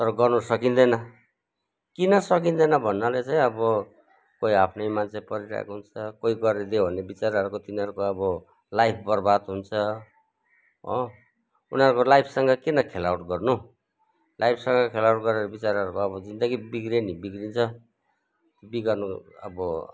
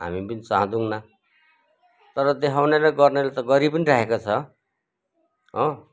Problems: none marked